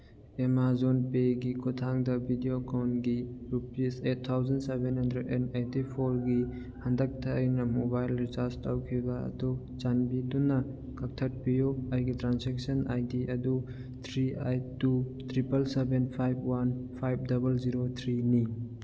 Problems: none marked